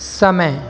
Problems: constant background noise